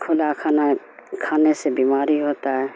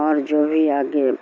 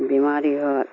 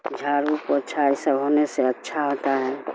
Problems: constant background noise